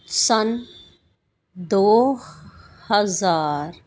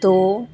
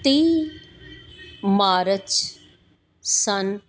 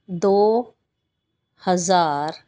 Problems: none marked